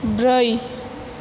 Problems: constant background noise